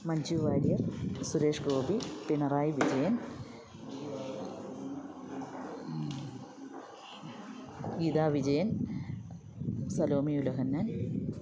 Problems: constant background noise